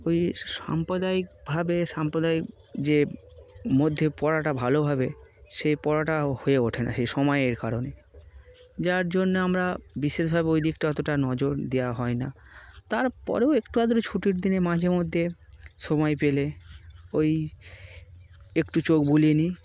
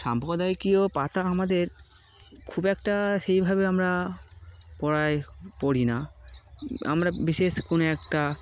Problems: none marked